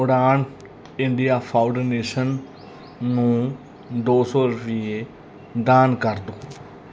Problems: background sounds at intervals